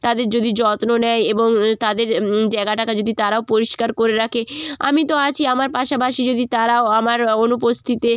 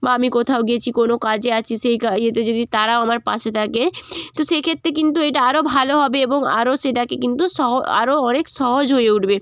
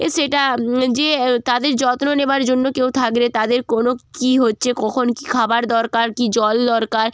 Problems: constant background noise